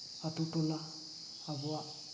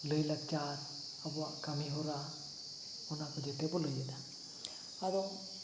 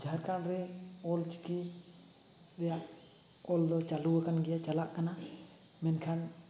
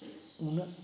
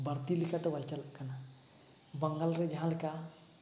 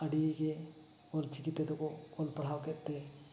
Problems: none marked